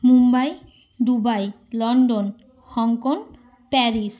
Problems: background sounds at intervals